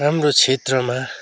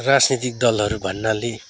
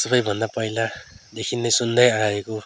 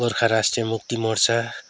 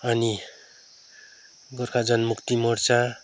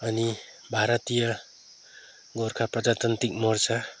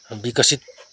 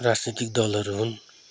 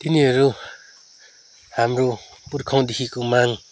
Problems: none marked